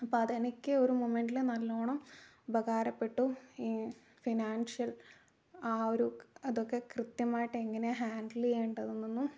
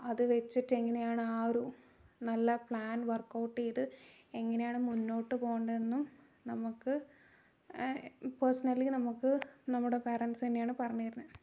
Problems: low volume